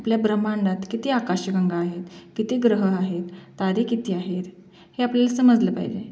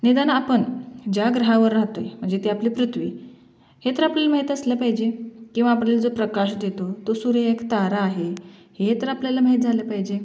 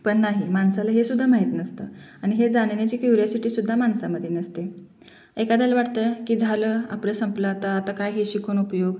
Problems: background sounds at intervals, background conversations at intervals, echo